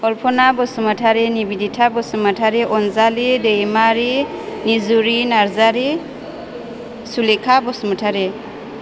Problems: constant background noise